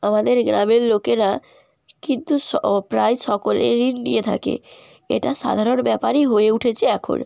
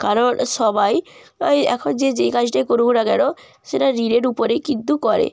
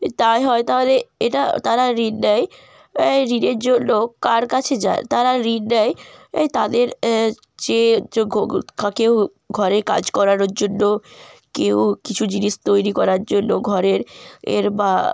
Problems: background sounds at intervals